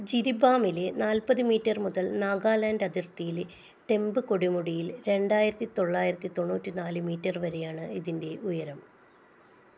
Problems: low volume